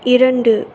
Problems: constant background noise